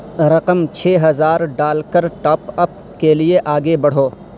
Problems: constant background noise